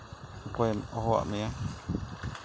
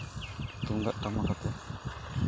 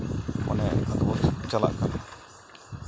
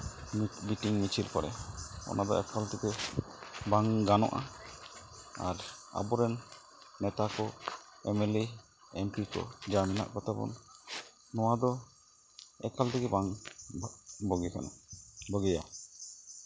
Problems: constant background noise